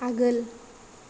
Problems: none marked